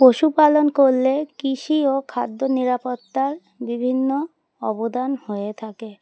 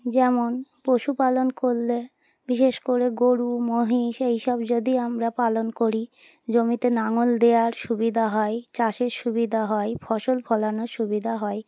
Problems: background sounds at intervals